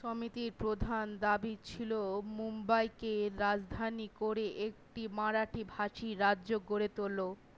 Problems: none marked